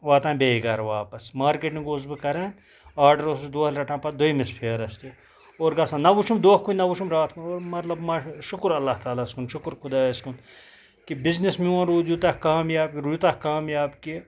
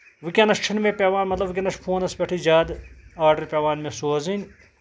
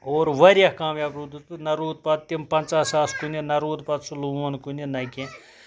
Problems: background sounds at intervals